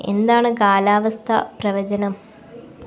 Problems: background sounds at intervals